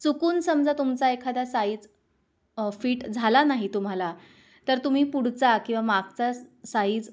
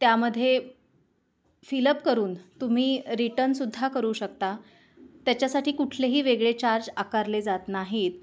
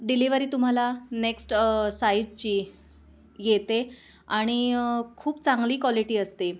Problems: background sounds at intervals, background conversations at intervals